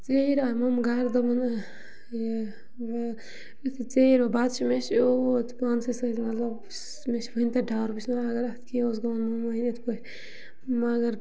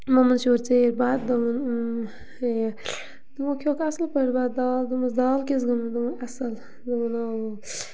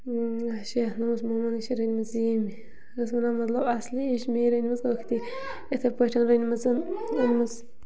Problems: background sounds at intervals